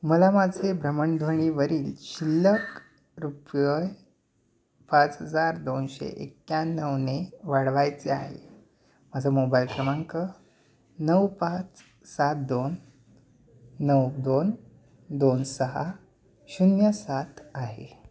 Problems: background sounds at intervals